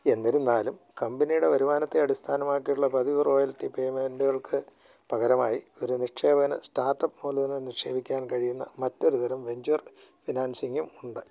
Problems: low volume